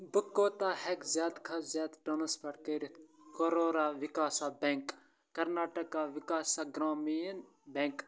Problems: constant background noise